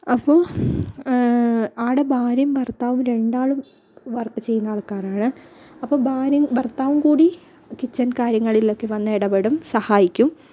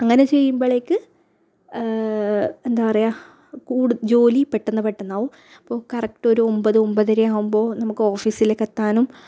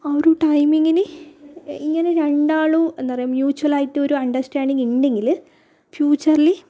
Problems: low volume